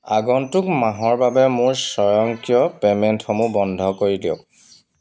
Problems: constant background noise